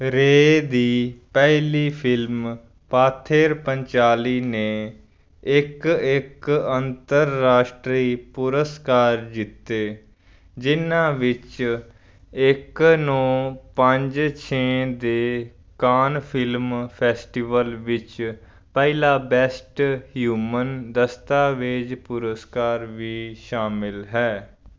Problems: background sounds at intervals